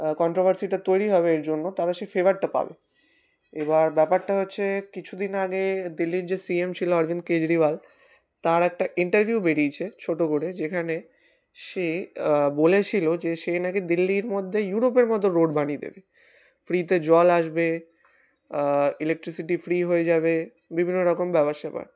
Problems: constant background noise